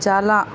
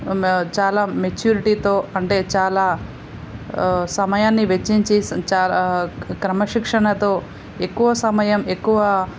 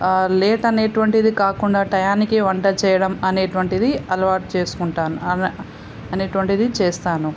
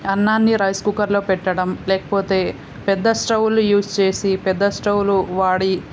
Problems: constant background noise